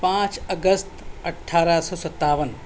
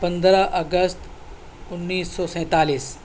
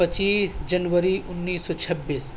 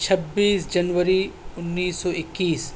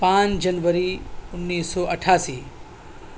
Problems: constant background noise, background conversations at intervals